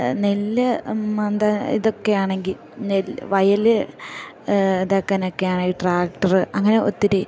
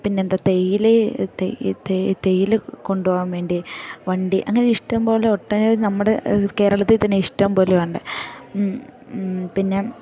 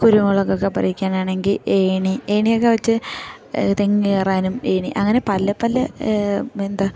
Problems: background sounds at intervals